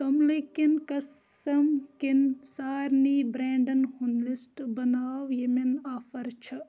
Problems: background sounds at intervals, background conversations at intervals